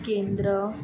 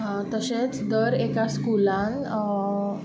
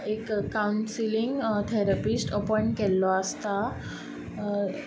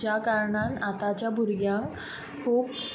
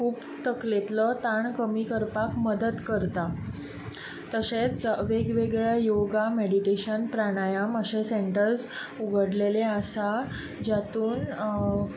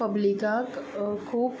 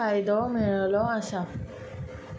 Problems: constant background noise